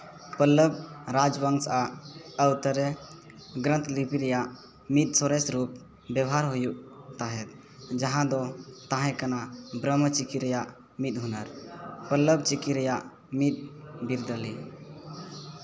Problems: background conversations at intervals